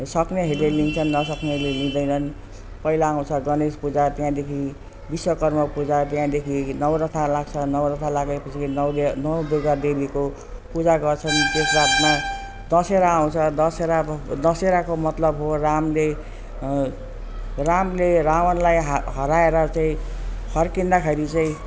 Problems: constant background noise